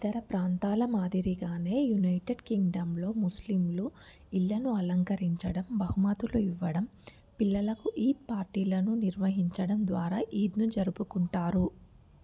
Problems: none marked